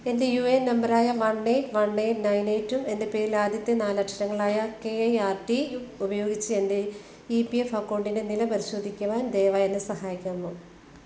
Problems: constant background noise